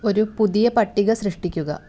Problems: none marked